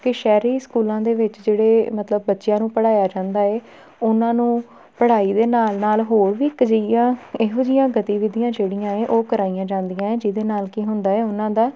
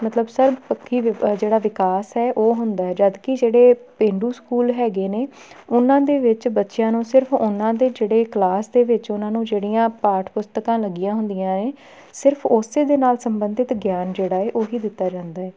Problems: background sounds at intervals